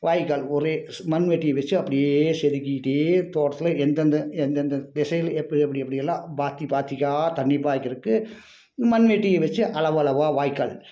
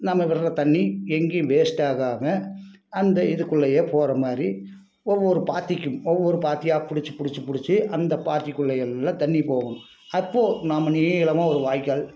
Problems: none marked